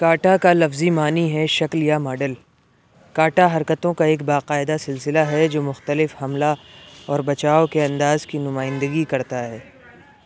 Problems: background sounds at intervals